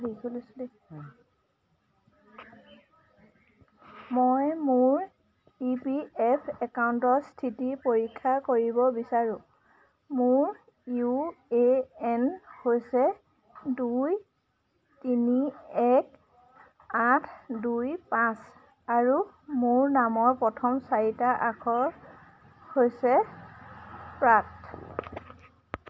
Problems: constant background noise, background conversations at intervals